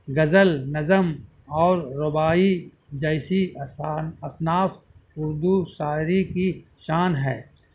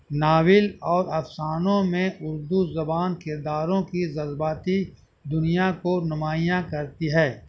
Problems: constant background noise, low volume